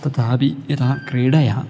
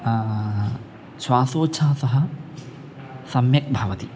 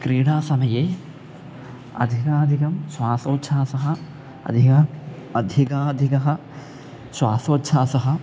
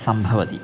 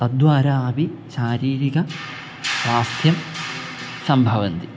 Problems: background sounds at intervals